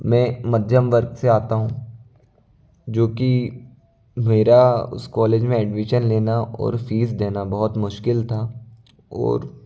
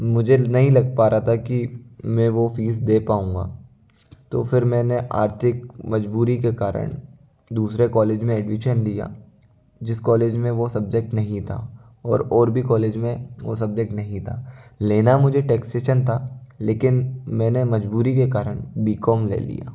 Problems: constant background noise, low volume